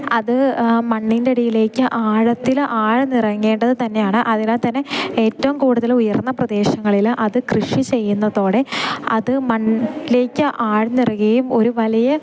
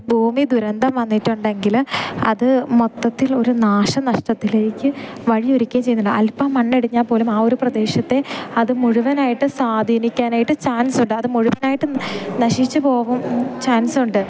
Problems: background sounds at intervals